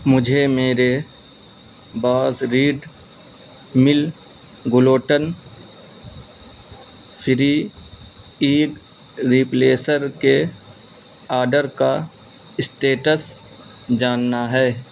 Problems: constant background noise